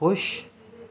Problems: none marked